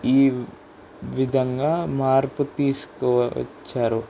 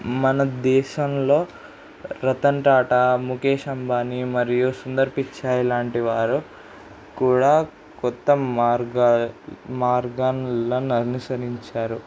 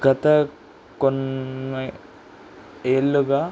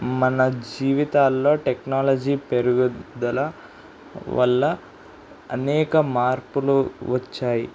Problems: constant background noise